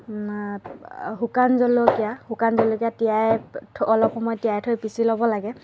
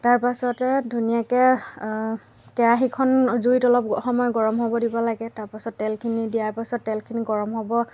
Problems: constant background noise